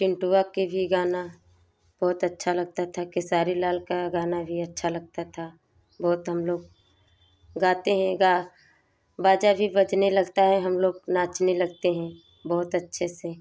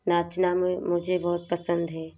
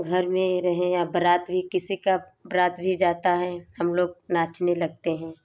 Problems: background sounds at intervals